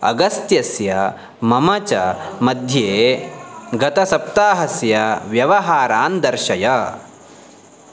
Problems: background sounds at intervals